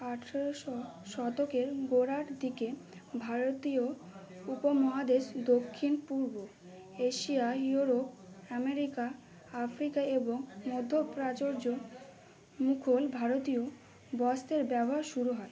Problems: low volume